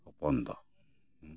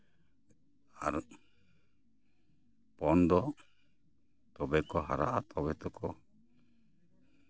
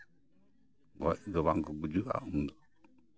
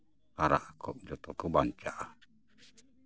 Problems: background sounds at intervals